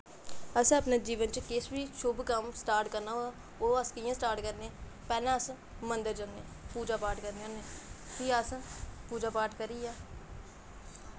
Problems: constant background noise